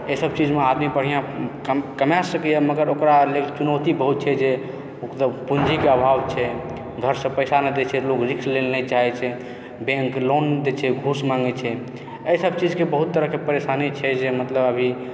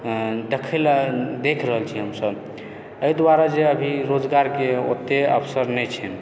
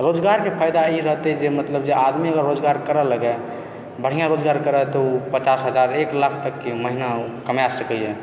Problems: background sounds at intervals, continuous background conversations